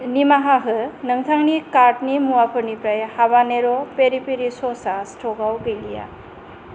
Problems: none marked